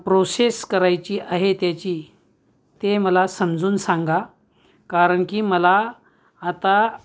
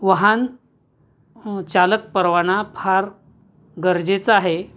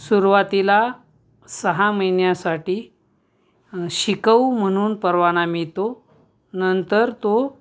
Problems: background sounds at intervals